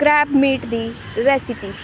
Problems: none marked